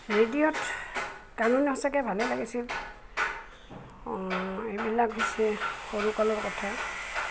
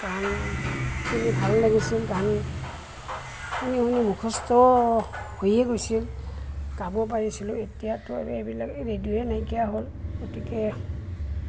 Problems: constant background noise, background conversations at intervals